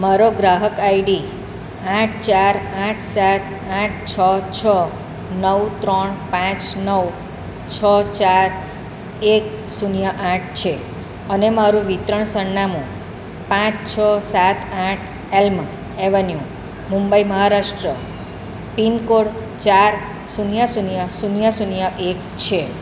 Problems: none marked